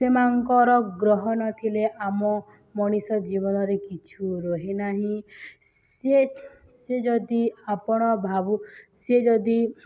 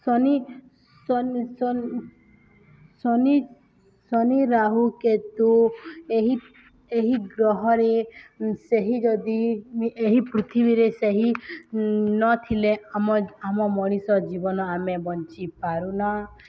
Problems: none marked